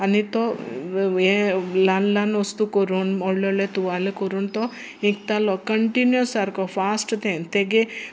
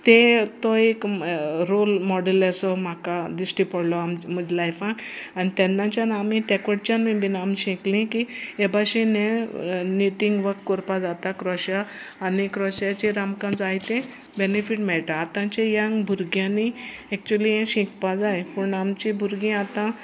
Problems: background sounds at intervals